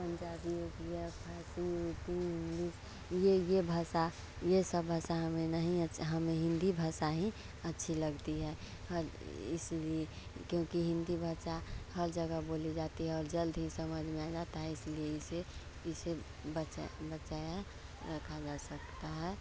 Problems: none marked